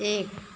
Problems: none marked